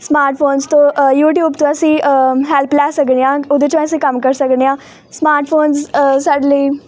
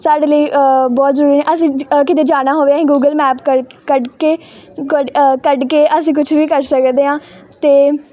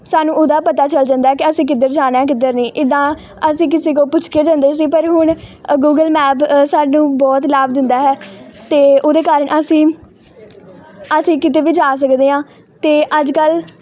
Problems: none marked